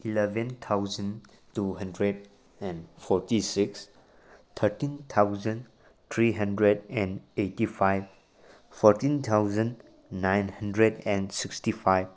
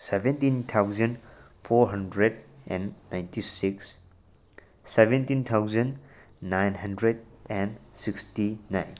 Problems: none marked